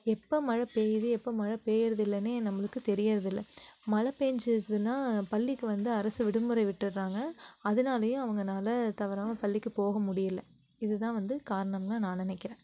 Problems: none marked